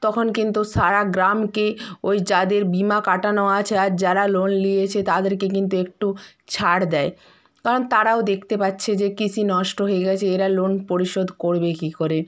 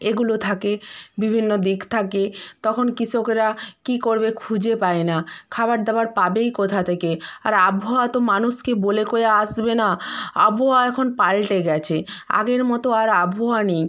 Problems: background conversations at intervals